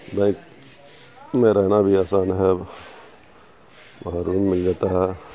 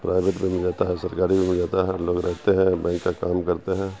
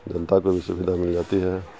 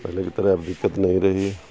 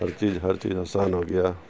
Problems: constant background noise